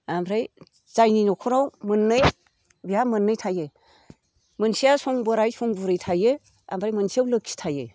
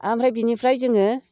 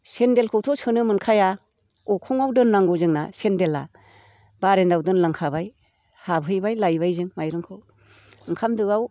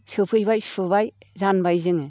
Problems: none marked